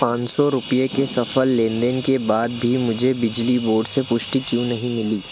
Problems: constant background noise